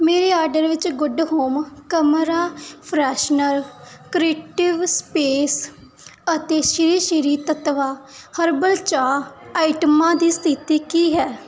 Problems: none marked